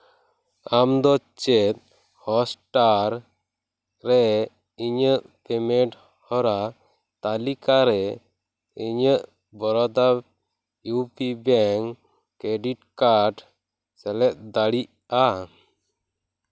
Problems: background sounds at intervals